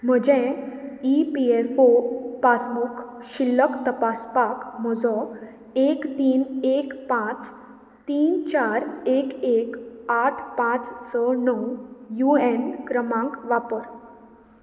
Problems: constant background noise